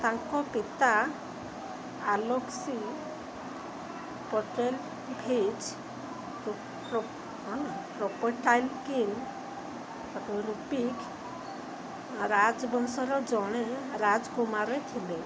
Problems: constant background noise